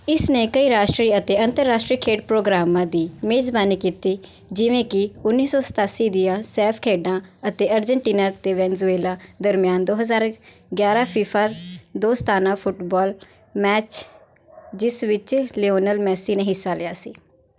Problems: background sounds at intervals